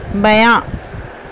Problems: constant background noise